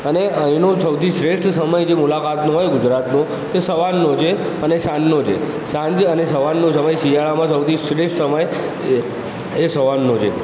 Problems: constant background noise, background conversations at intervals